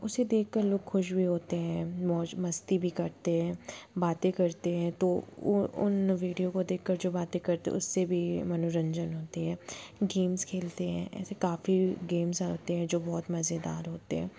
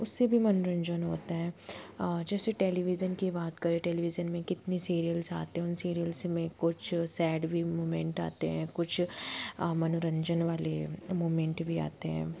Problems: constant background noise